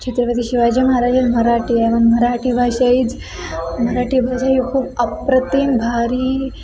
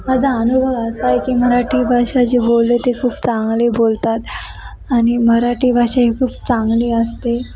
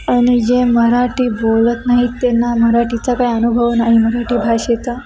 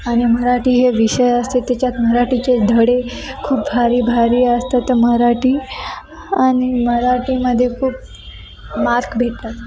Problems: constant background noise, continuous background conversations